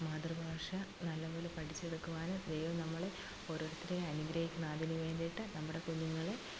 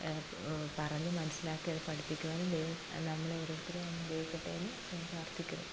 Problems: constant background noise, low volume